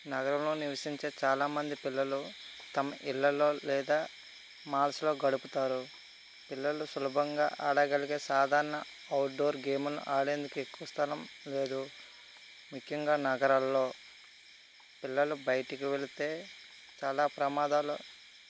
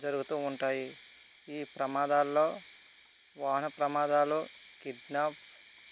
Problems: constant background noise